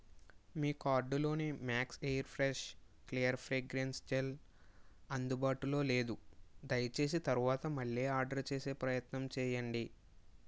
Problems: low volume